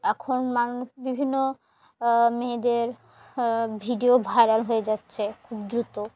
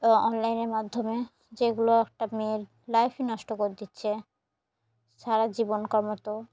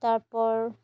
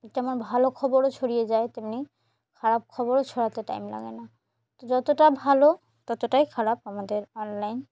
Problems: background sounds at intervals